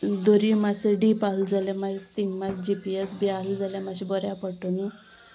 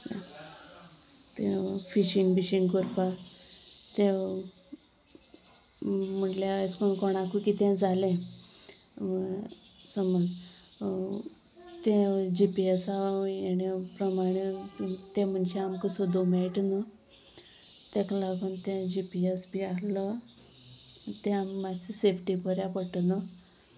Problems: continuous background conversations